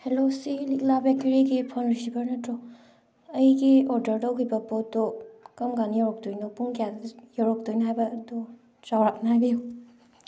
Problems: background sounds at intervals